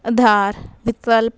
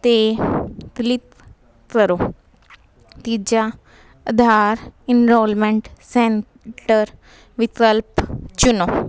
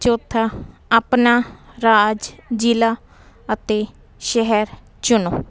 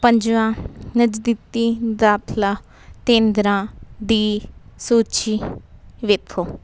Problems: none marked